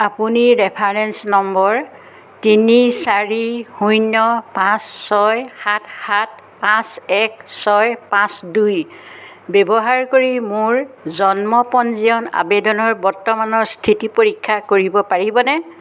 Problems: none marked